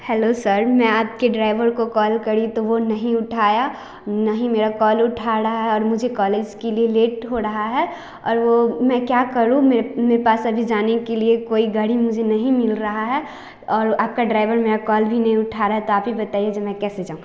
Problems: none marked